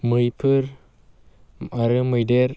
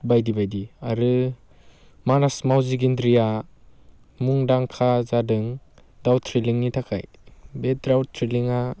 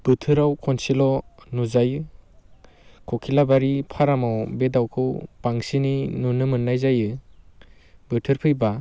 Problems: constant background noise